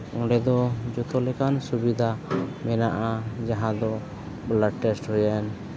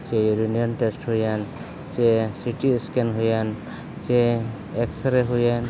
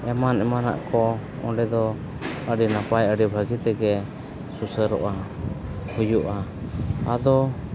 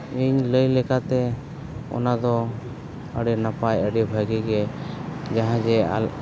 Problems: constant background noise